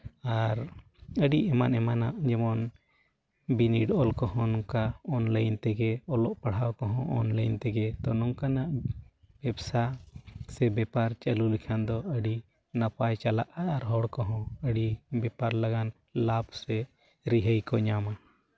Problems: none marked